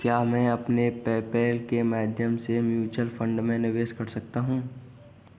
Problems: background sounds at intervals, continuous background conversations